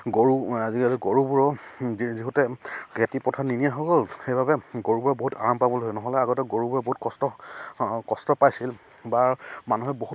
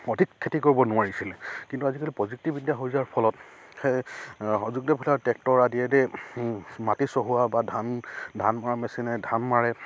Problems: none marked